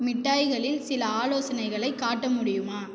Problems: echo